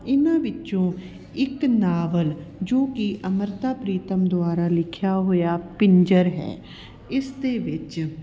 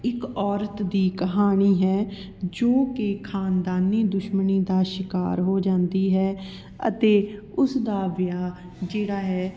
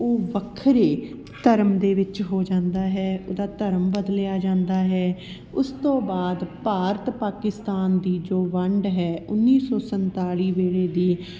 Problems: background sounds at intervals, background conversations at intervals